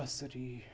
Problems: none marked